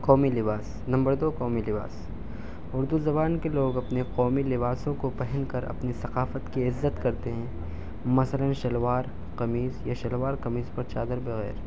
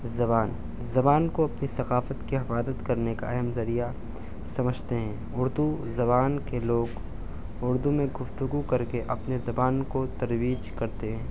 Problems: none marked